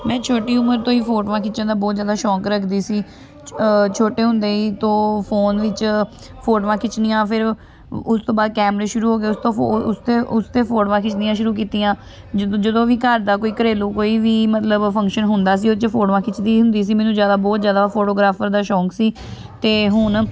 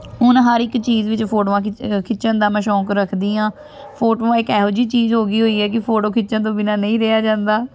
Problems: constant background noise, continuous background conversations